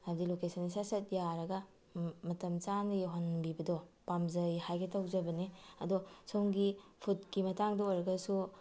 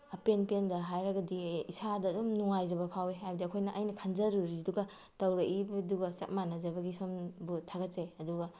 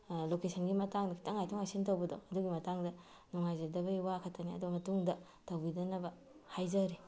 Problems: background sounds at intervals